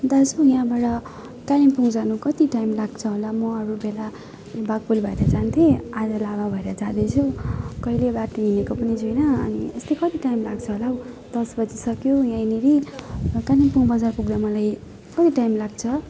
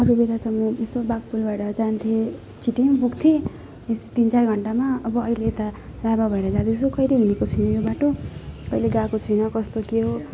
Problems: continuous background conversations